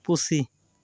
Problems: constant background noise